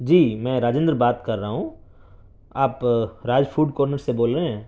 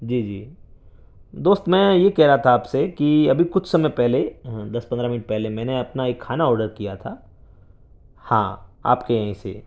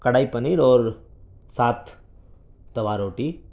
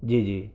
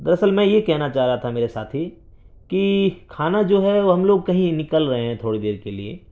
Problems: background sounds at intervals, low volume